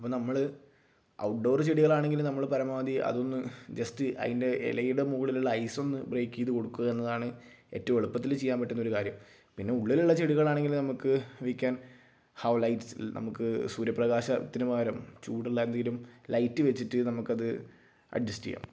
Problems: low volume